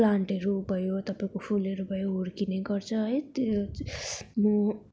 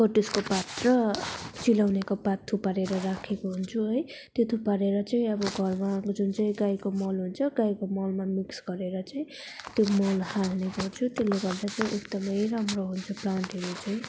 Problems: background sounds at intervals